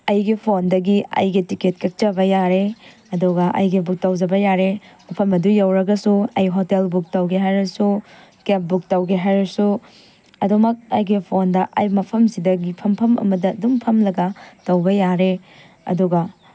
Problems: none marked